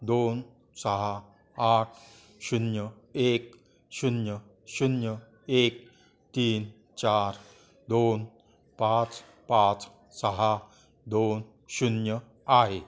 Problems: continuous background conversations